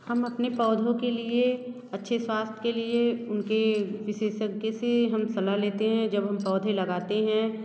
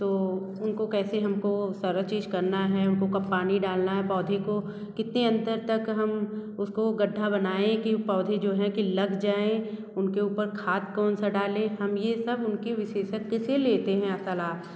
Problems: background sounds at intervals